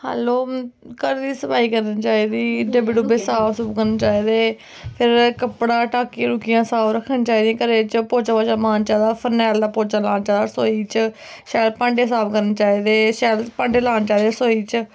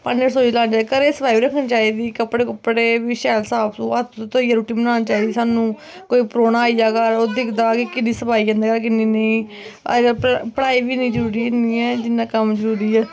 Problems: constant background noise